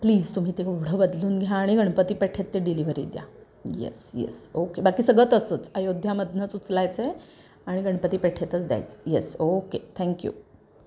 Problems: none marked